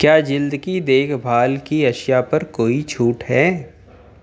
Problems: constant background noise